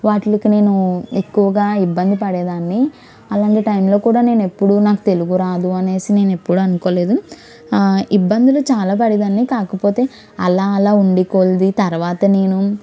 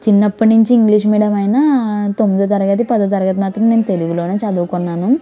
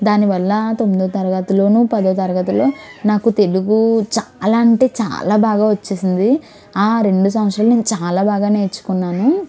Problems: background conversations at intervals